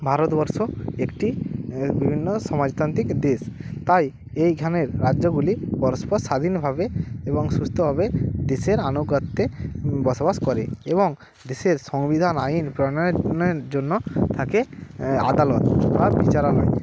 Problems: constant background noise